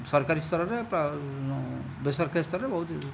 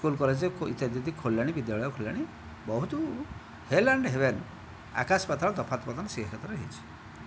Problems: background sounds at intervals